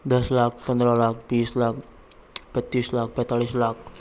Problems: background sounds at intervals